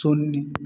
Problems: background sounds at intervals